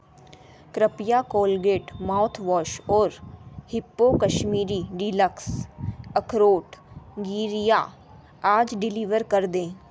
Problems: background sounds at intervals